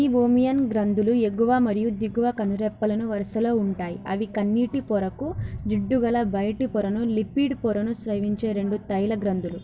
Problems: constant background noise